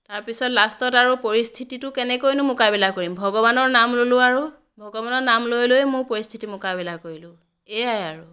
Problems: none marked